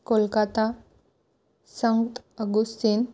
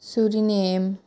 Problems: none marked